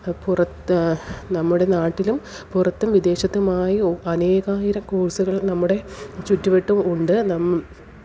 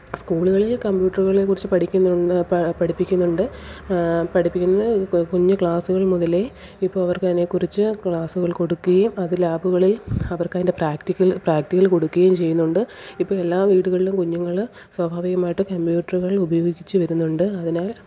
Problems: low volume